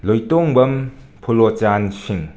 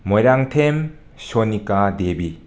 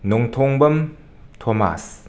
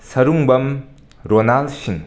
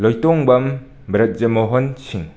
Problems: none marked